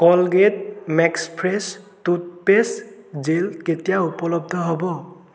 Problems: constant background noise, echo